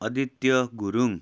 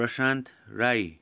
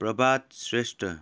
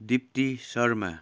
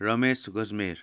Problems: none marked